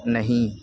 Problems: background sounds at intervals